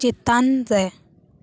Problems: none marked